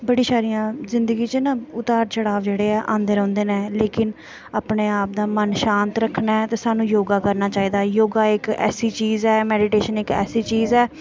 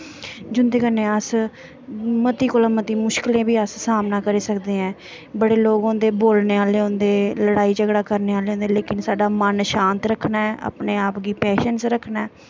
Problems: constant background noise